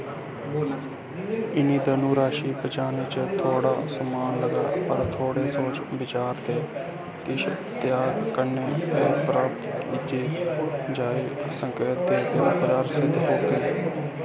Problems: constant background noise, background conversations at intervals